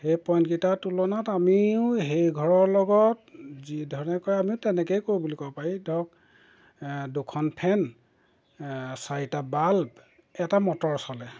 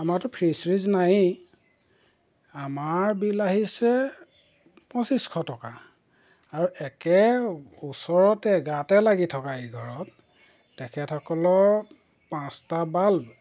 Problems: background sounds at intervals